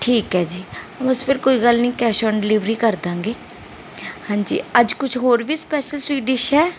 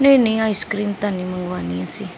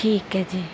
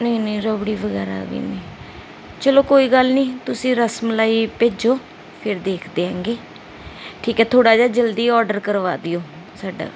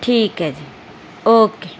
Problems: background sounds at intervals